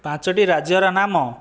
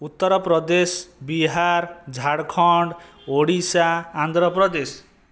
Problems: background sounds at intervals